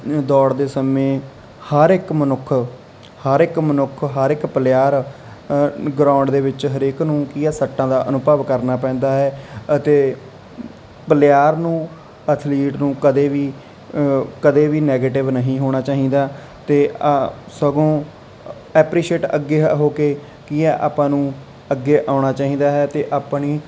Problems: constant background noise